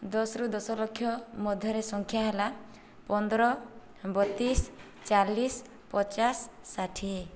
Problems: none marked